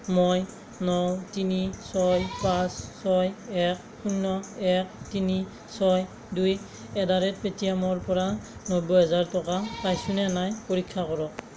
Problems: constant background noise